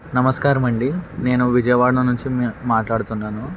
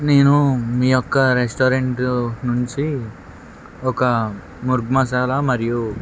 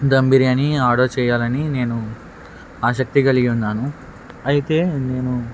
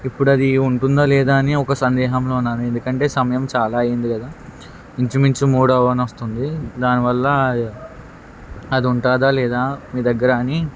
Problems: constant background noise